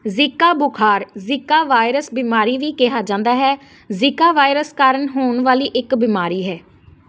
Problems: constant background noise